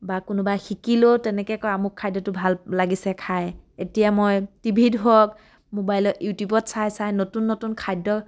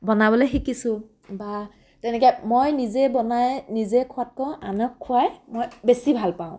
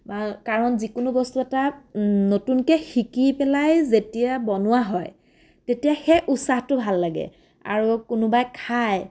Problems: none marked